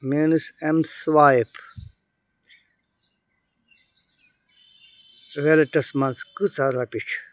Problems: none marked